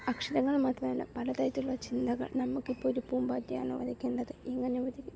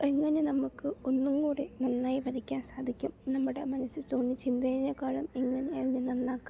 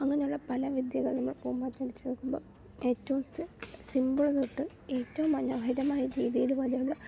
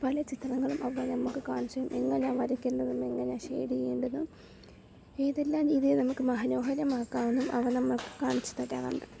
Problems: none marked